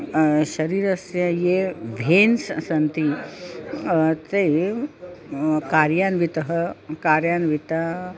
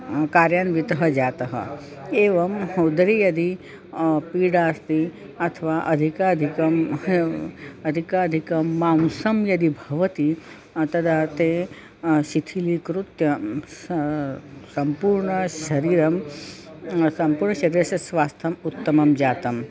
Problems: constant background noise, continuous background conversations